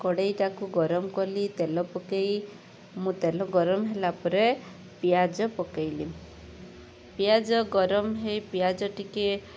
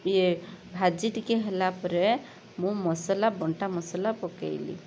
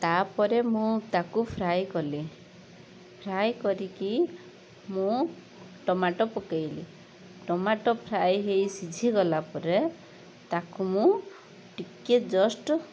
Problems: constant background noise